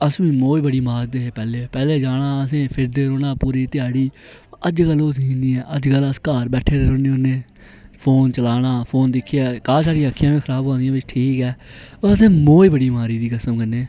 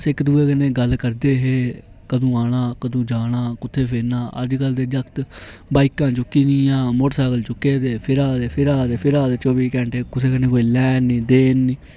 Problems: none marked